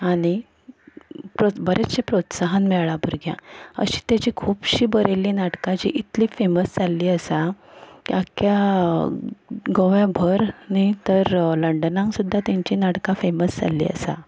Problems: background sounds at intervals